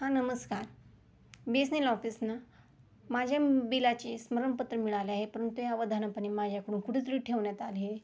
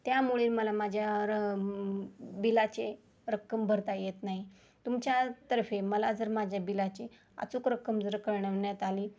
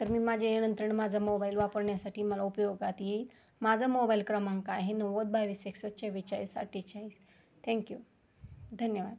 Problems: none marked